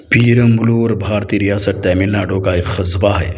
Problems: constant background noise